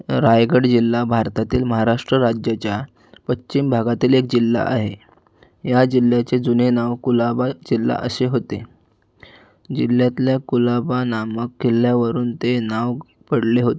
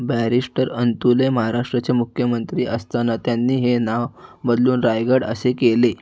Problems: background sounds at intervals